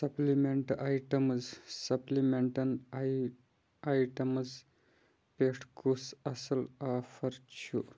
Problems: background sounds at intervals